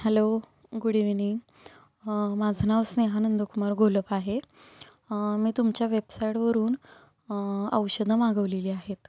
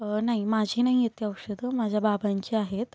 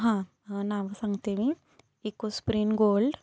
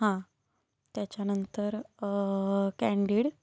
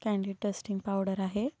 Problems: constant background noise